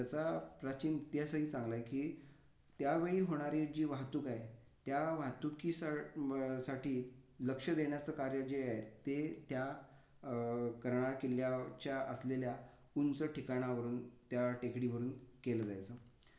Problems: none marked